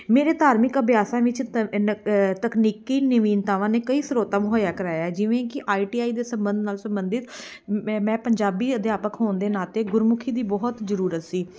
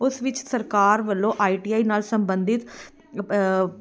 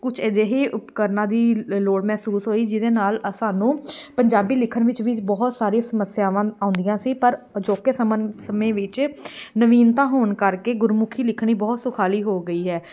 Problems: background sounds at intervals, background conversations at intervals